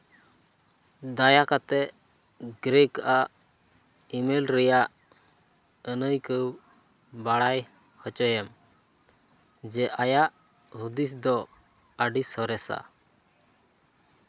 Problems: none marked